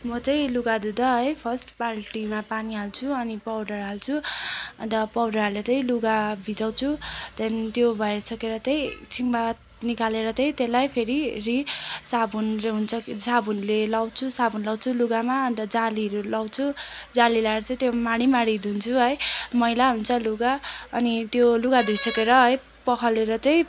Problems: constant background noise